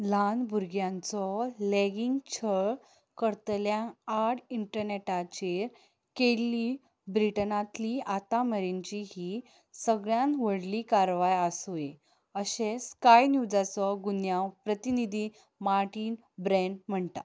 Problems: none marked